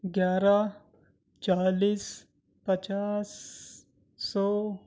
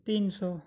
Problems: none marked